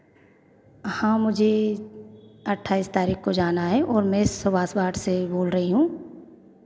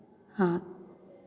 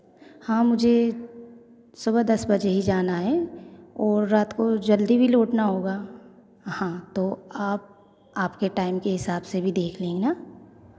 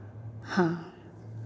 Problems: constant background noise